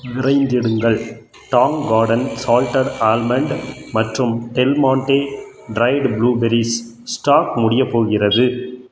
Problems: background sounds at intervals